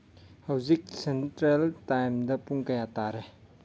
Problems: low volume